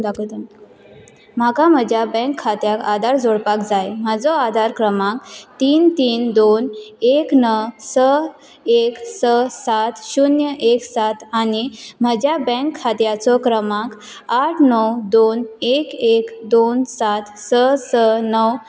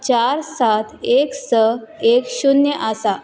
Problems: background sounds at intervals